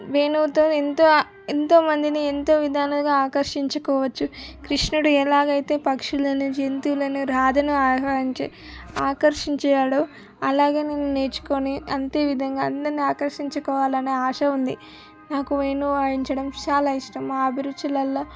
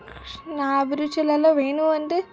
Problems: background sounds at intervals